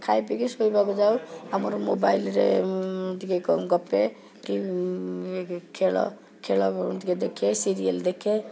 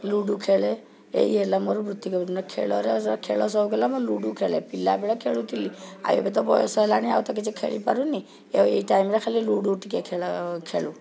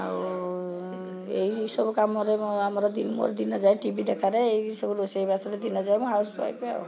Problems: continuous background conversations